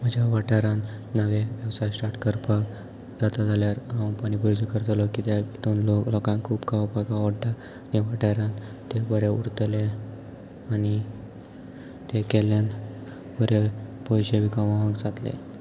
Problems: constant background noise, background conversations at intervals